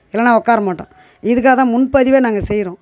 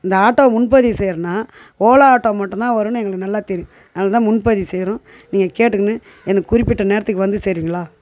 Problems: constant background noise